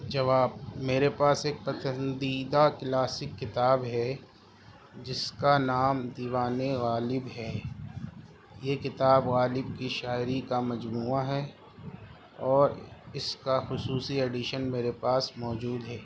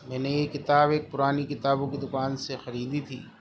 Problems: constant background noise